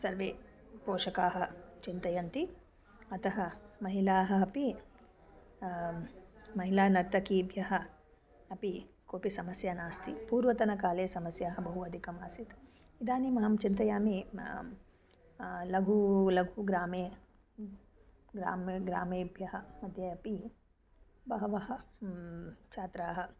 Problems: none marked